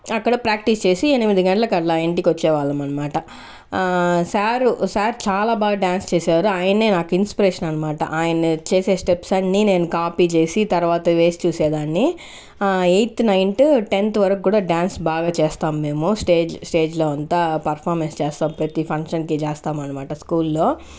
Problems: constant background noise